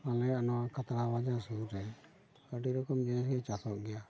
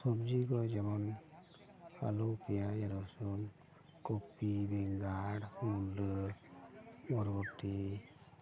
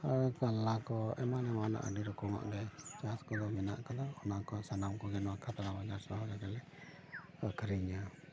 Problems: background sounds at intervals, continuous background conversations